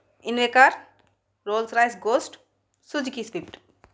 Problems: none marked